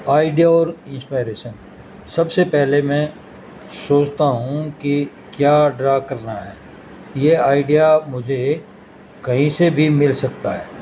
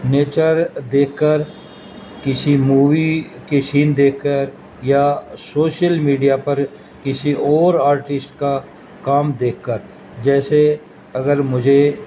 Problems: constant background noise